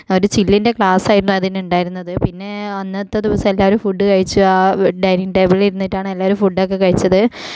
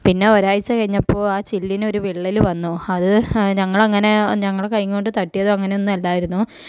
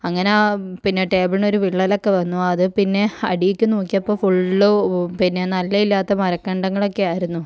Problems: low volume